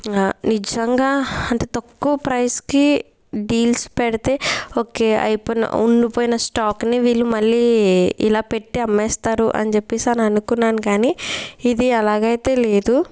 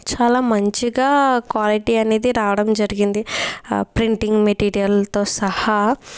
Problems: background sounds at intervals